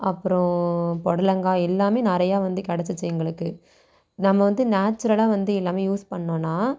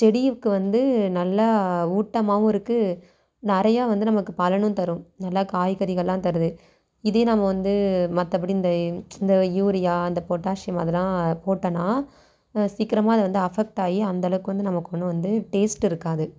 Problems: none marked